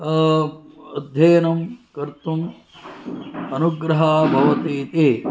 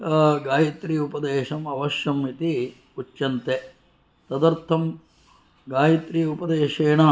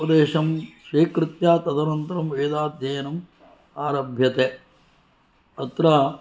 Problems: none marked